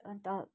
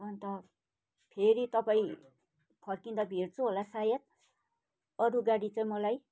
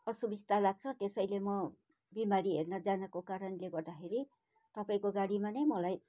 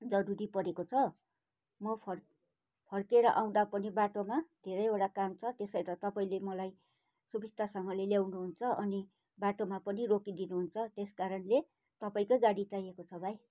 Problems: none marked